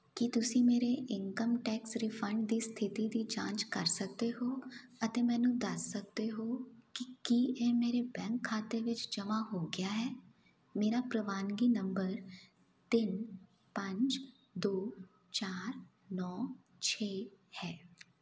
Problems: none marked